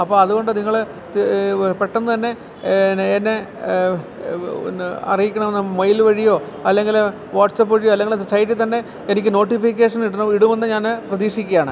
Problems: constant background noise